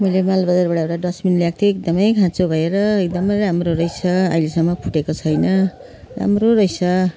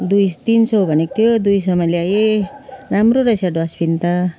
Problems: constant background noise, continuous background conversations